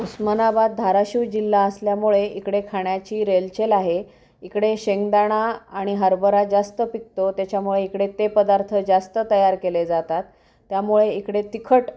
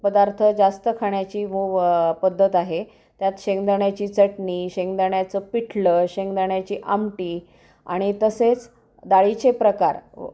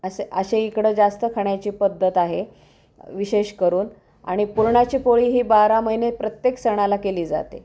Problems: background sounds at intervals